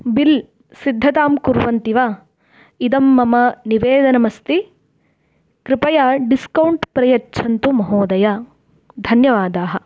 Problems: background sounds at intervals